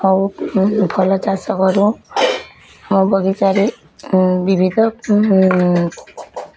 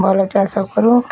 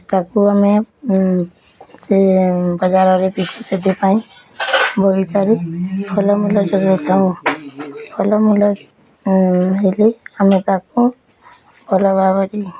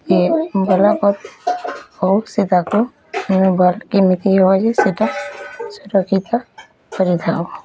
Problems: none marked